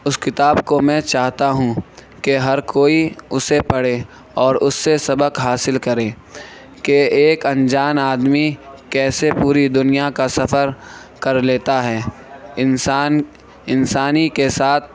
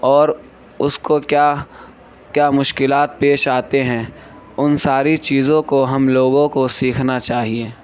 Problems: constant background noise